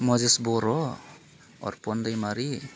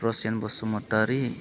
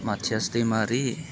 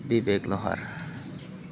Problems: constant background noise